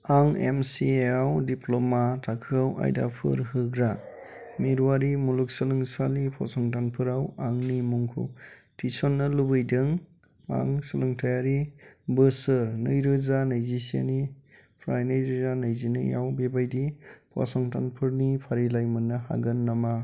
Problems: constant background noise